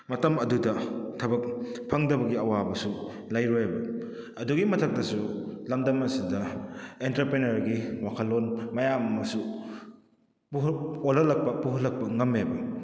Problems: echo